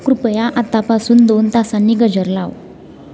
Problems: constant background noise